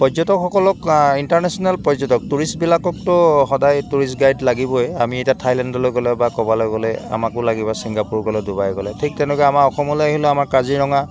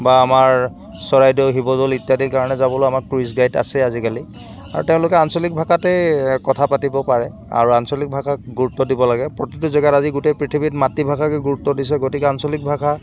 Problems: constant background noise